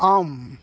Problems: background conversations at intervals